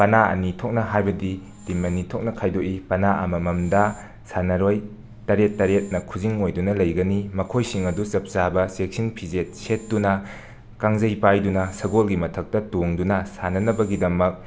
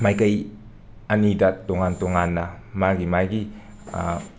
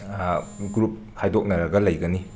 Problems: background sounds at intervals